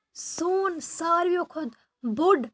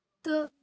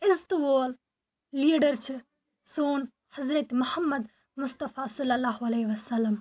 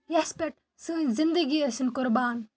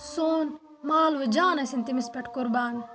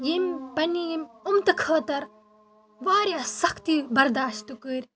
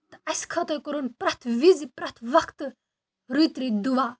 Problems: background sounds at intervals